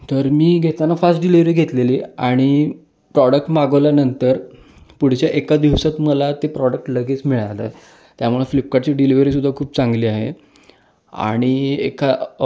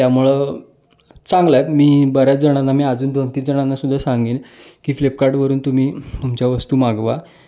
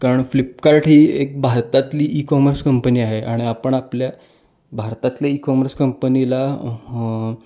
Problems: constant background noise